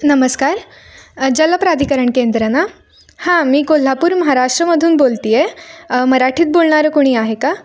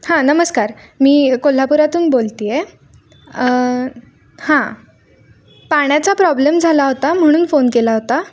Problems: none marked